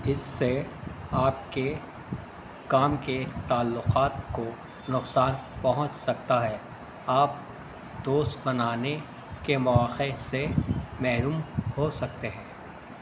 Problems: constant background noise